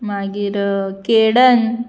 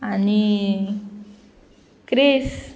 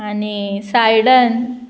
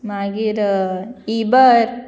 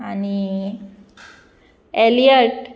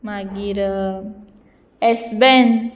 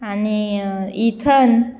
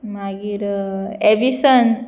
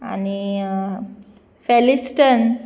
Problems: background sounds at intervals